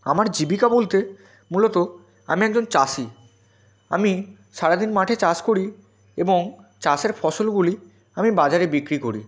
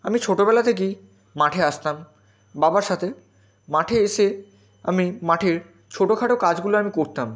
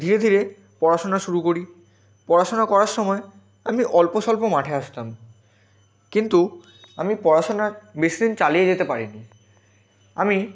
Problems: constant background noise, continuous background conversations